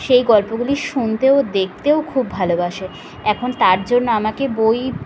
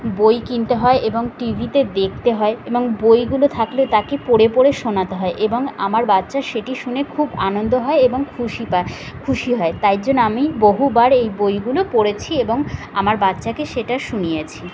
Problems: constant background noise